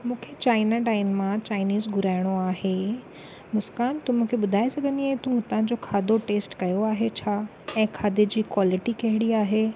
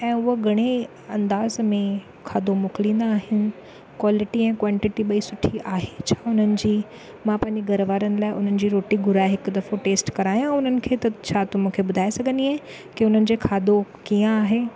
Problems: none marked